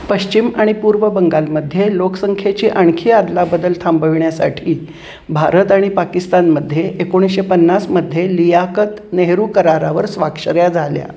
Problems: constant background noise